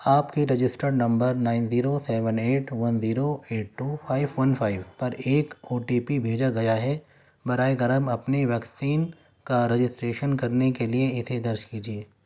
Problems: none marked